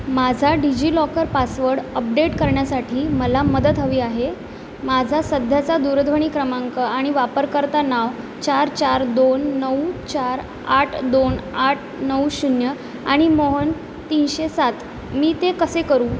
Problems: none marked